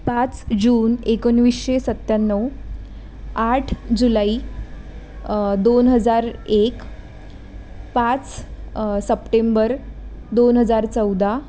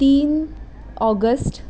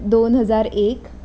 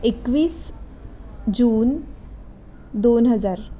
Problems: background sounds at intervals